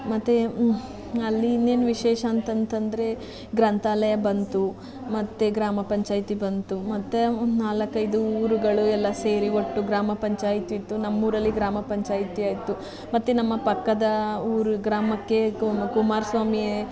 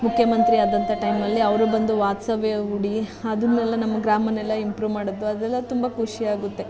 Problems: constant background noise, continuous background conversations